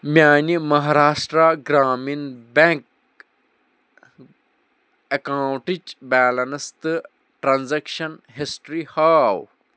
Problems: none marked